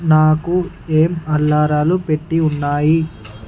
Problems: background sounds at intervals